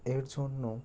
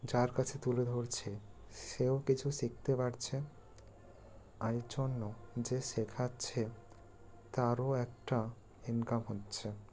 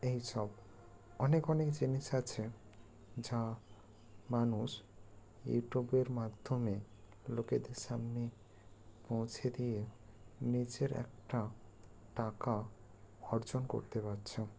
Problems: low volume